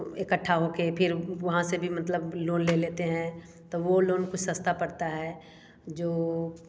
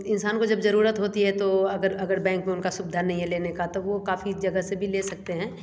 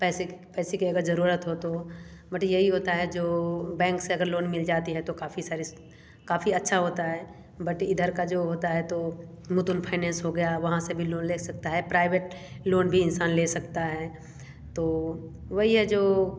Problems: none marked